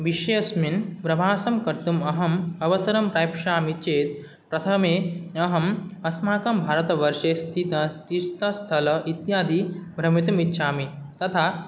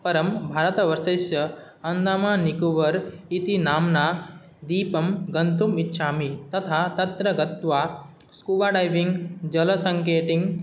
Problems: none marked